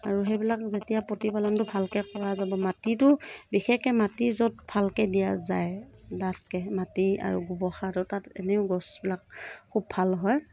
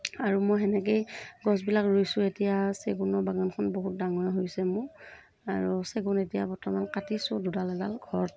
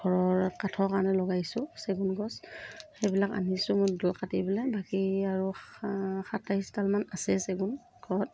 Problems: none marked